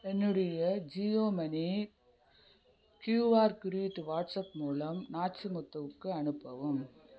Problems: background conversations at intervals